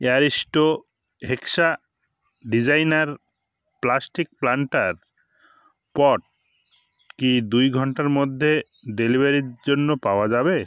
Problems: background sounds at intervals